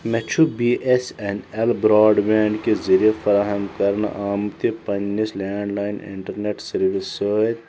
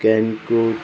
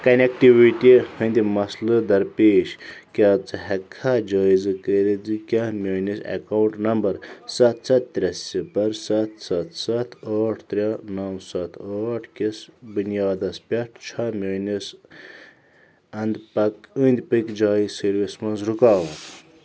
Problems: background sounds at intervals